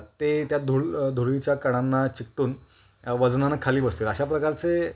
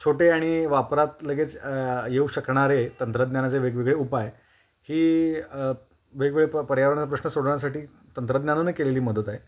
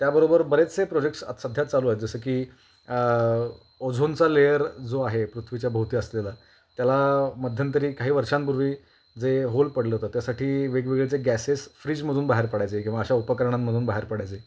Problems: constant background noise